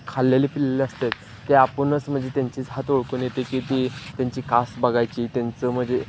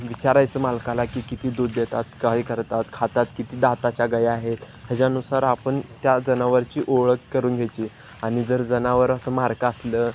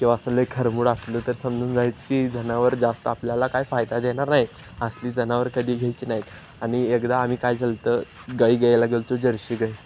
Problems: none marked